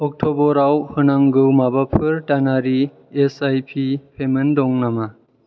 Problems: none marked